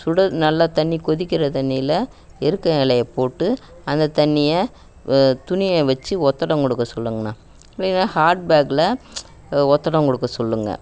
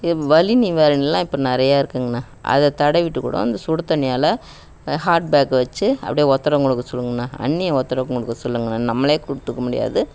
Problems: background sounds at intervals